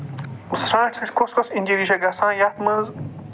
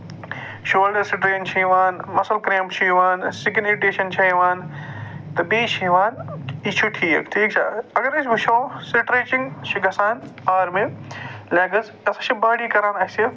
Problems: none marked